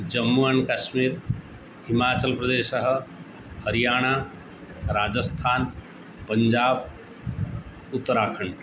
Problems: constant background noise